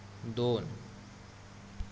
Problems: constant background noise